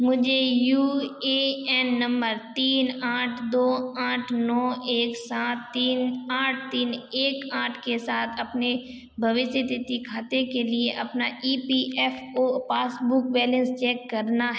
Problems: echo